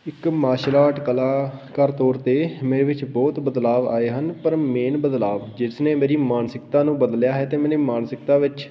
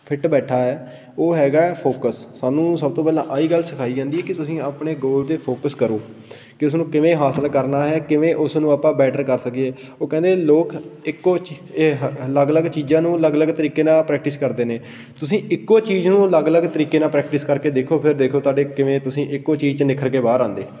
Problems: background sounds at intervals